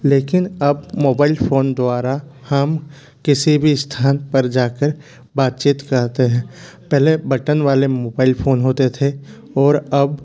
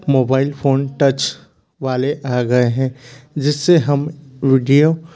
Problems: constant background noise